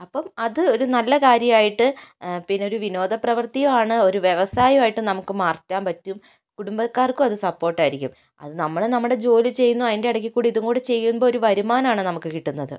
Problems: none marked